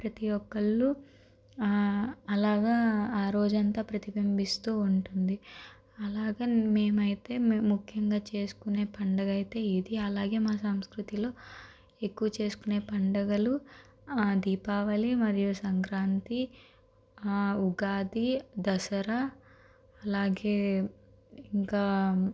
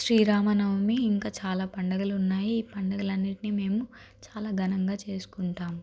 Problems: constant background noise